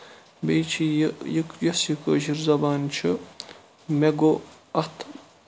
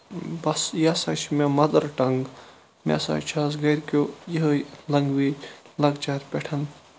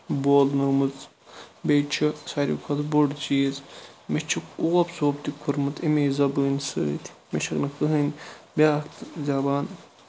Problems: constant background noise, low volume